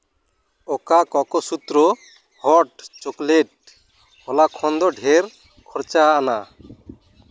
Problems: background sounds at intervals